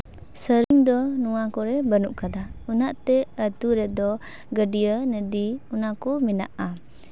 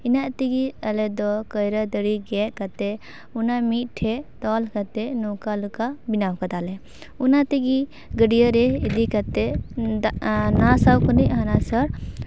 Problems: none marked